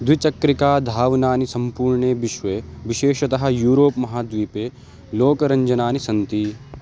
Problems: constant background noise